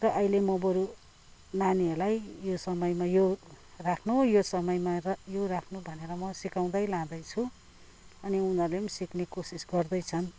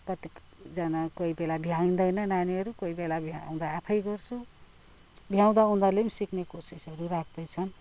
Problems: background sounds at intervals